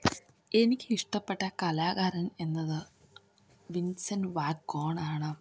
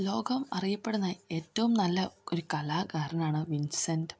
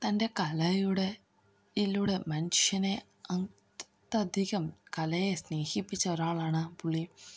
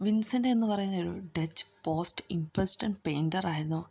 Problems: none marked